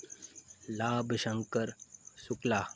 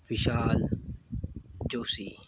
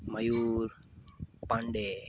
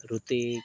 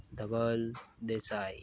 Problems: constant background noise